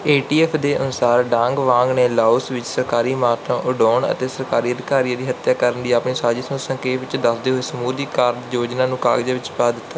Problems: background sounds at intervals